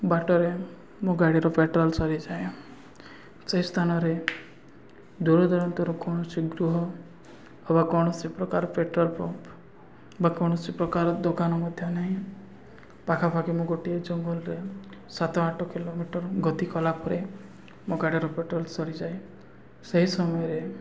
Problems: none marked